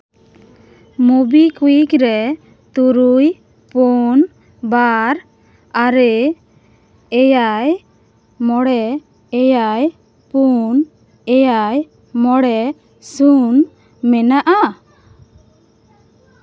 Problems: none marked